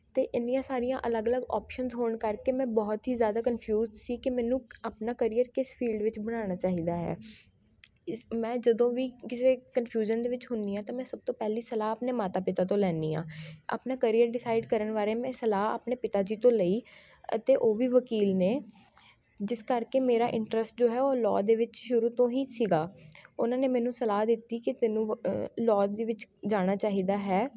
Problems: background sounds at intervals, continuous background conversations